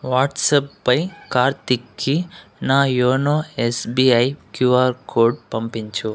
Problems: background sounds at intervals